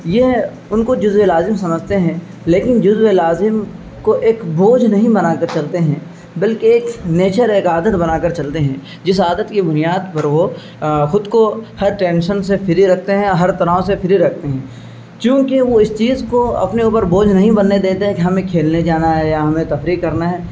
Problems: constant background noise